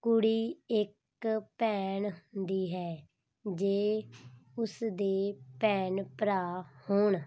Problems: background sounds at intervals